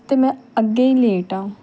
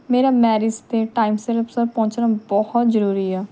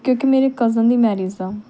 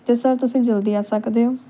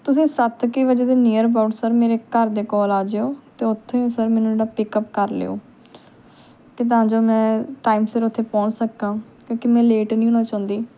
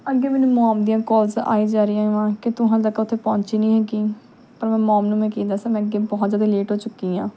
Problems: none marked